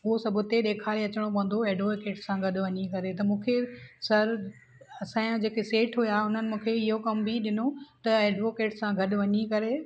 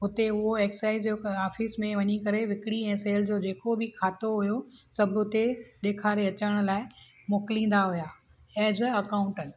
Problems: none marked